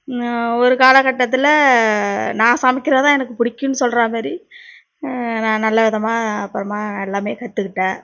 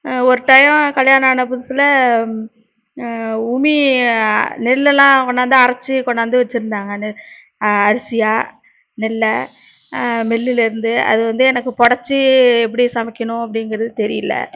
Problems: none marked